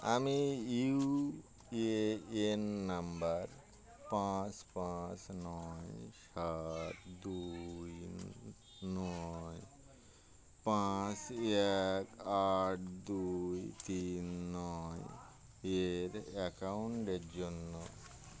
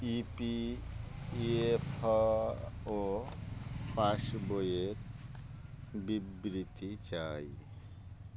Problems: constant background noise